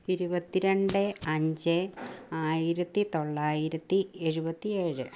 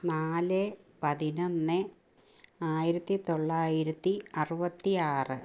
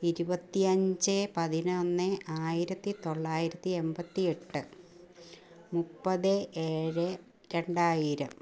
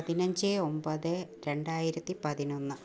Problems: low volume